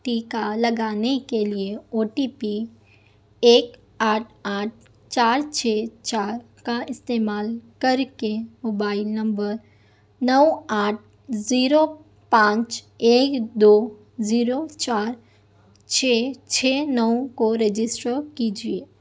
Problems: none marked